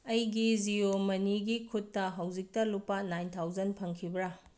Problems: low volume